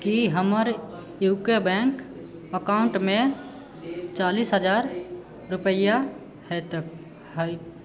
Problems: background conversations at intervals